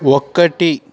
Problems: continuous background conversations